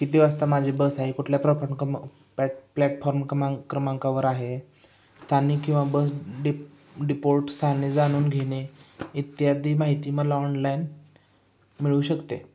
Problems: background sounds at intervals, echo